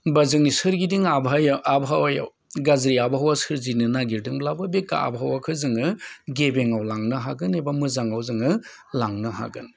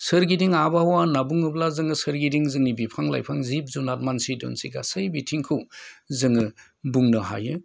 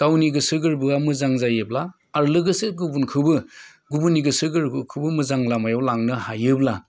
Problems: none marked